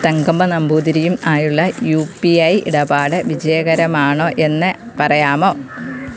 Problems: constant background noise